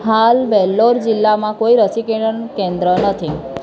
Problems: background sounds at intervals